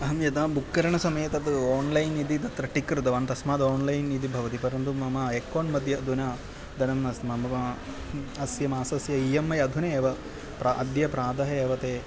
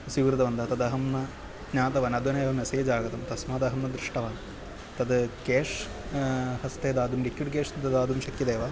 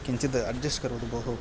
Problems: background conversations at intervals